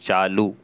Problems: constant background noise